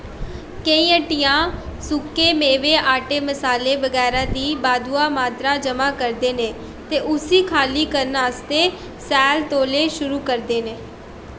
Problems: constant background noise